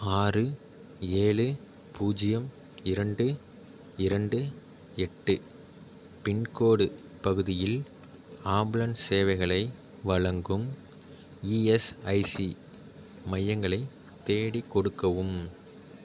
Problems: none marked